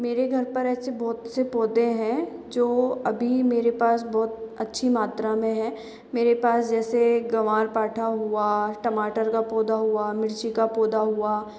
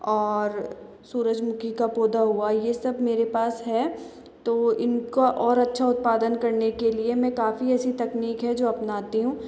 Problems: constant background noise, echo